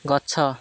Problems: constant background noise